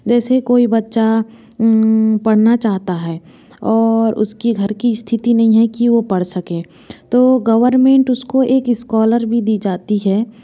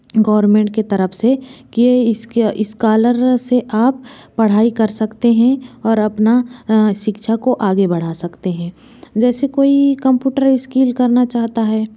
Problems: none marked